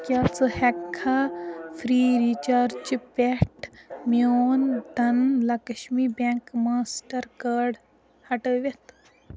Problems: constant background noise, continuous background conversations